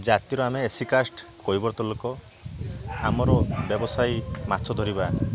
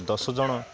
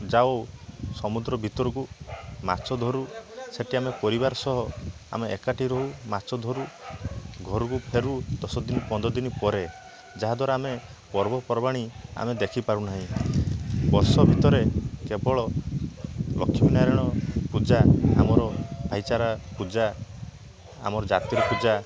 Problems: constant background noise, continuous background conversations